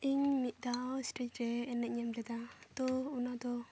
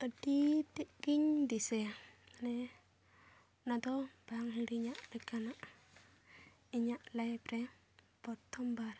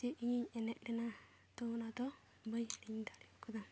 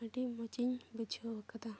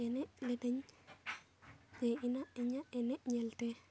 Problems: none marked